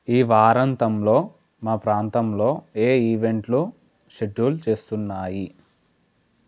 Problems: none marked